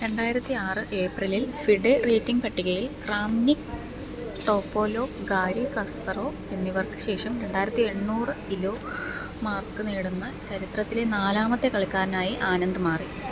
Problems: low volume